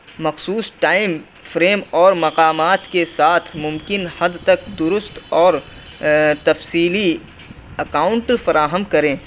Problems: constant background noise